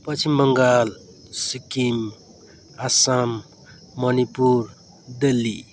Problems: none marked